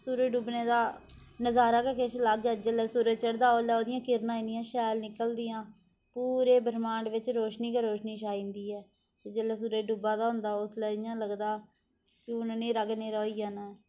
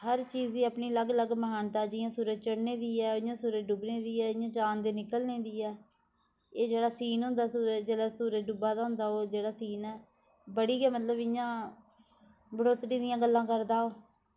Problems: constant background noise